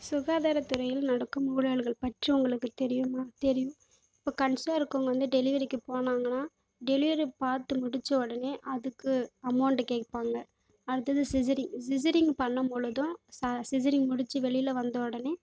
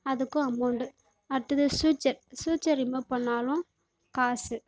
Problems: background sounds at intervals